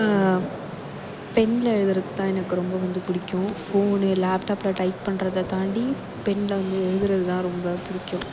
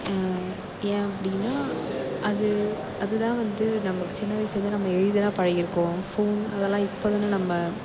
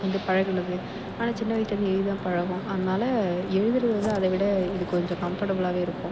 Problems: background sounds at intervals, low volume